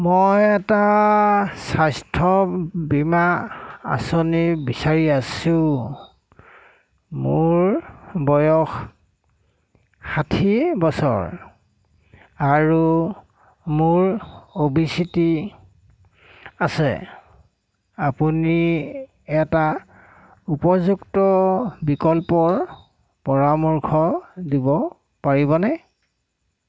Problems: none marked